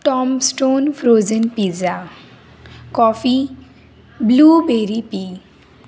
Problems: constant background noise, continuous background conversations